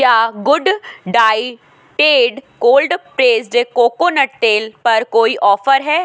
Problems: constant background noise